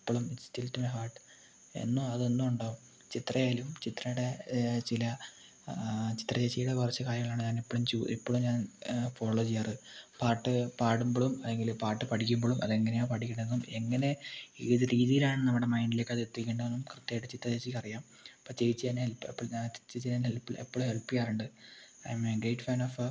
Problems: low volume